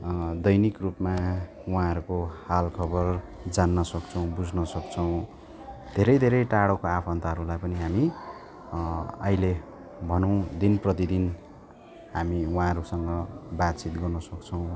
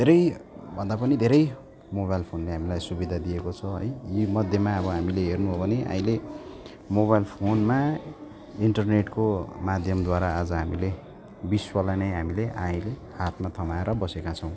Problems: continuous background conversations